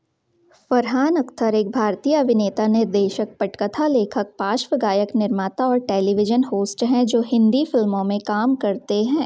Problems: none marked